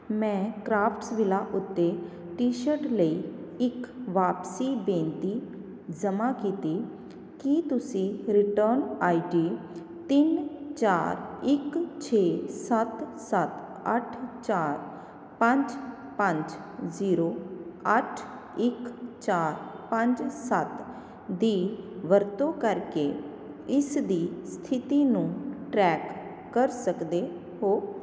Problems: constant background noise